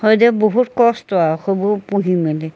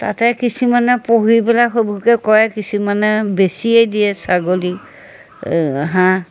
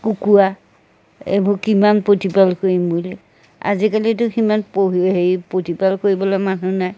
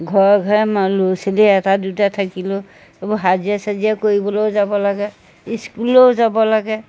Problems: none marked